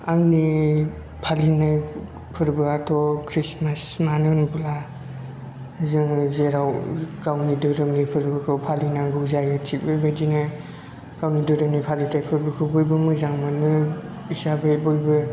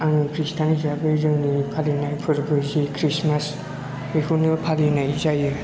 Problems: low volume